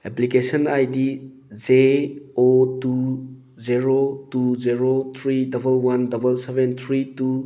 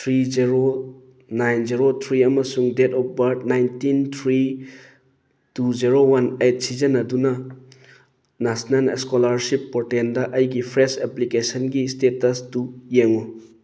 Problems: none marked